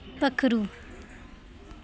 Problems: background sounds at intervals